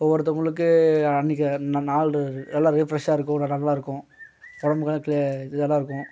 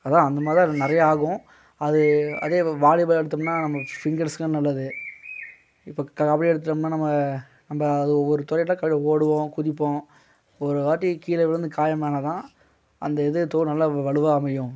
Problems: background sounds at intervals